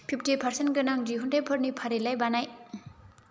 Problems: low volume